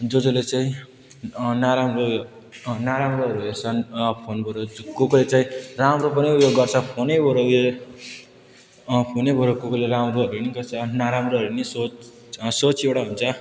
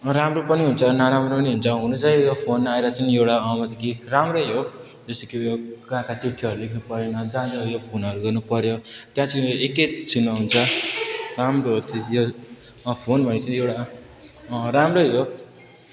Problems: constant background noise, continuous background conversations